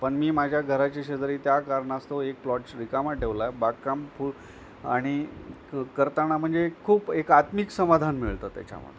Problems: none marked